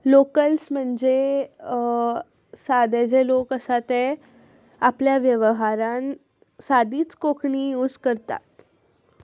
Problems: none marked